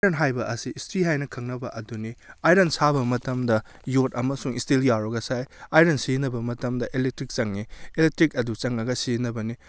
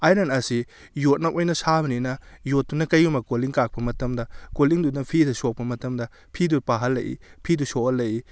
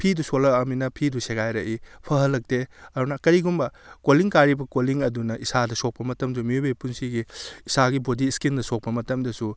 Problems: none marked